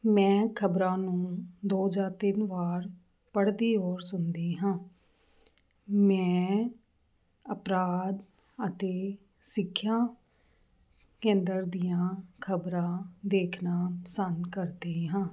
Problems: none marked